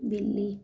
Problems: none marked